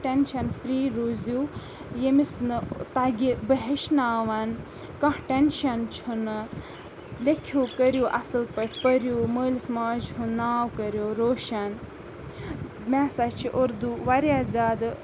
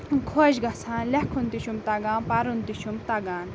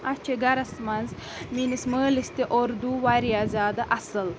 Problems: background sounds at intervals, background conversations at intervals